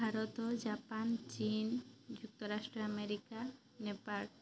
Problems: none marked